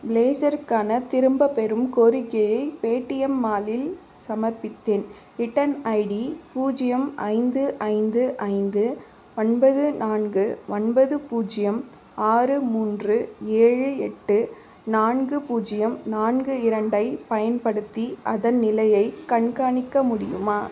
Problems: constant background noise, background conversations at intervals